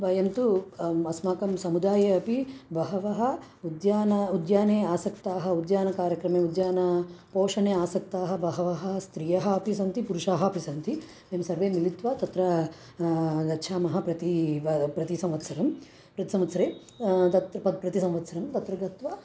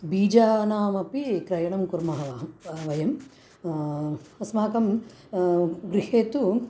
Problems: none marked